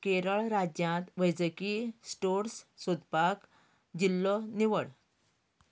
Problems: background conversations at intervals